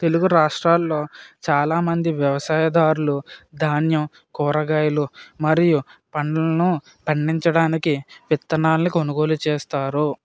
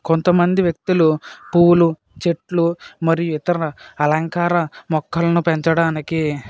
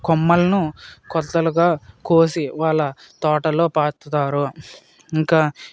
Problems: none marked